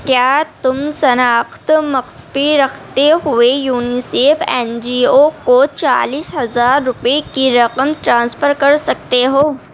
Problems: none marked